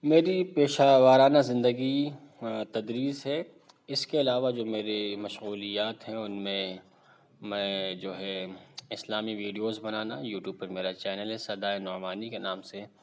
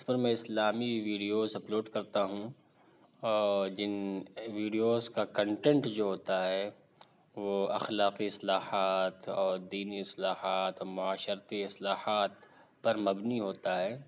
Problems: none marked